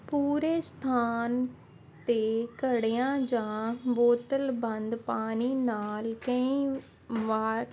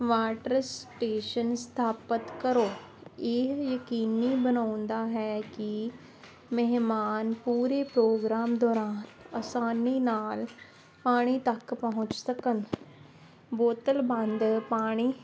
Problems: constant background noise